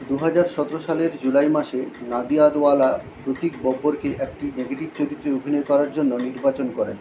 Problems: constant background noise